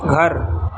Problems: constant background noise